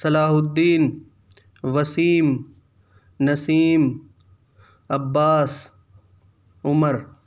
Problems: none marked